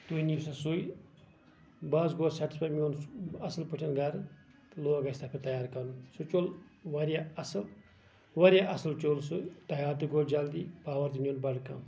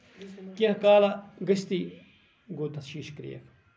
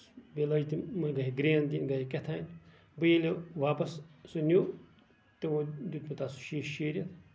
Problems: background sounds at intervals, background conversations at intervals